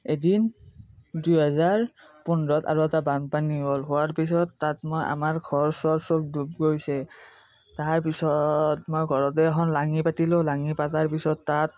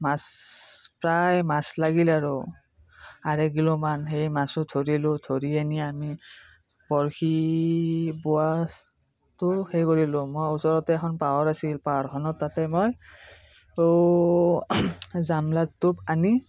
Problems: none marked